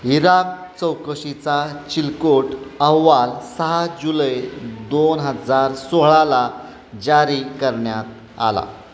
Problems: constant background noise, background conversations at intervals